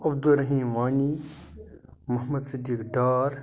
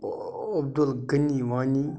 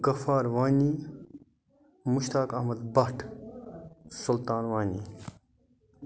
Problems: none marked